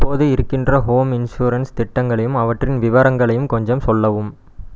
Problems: none marked